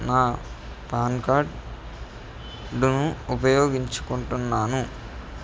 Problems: background sounds at intervals